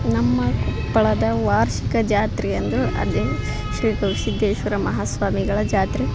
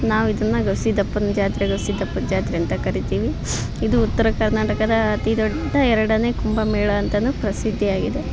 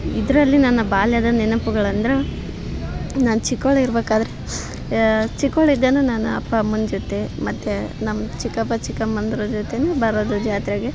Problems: background sounds at intervals